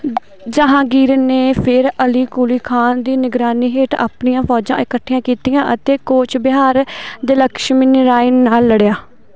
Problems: none marked